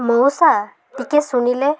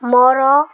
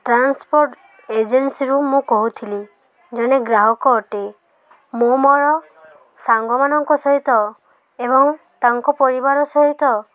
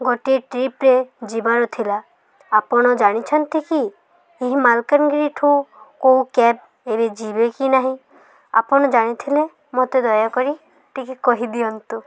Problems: none marked